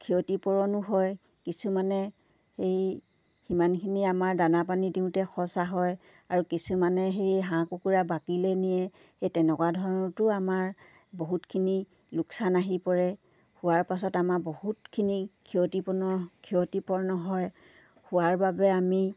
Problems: none marked